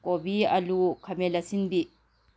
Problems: none marked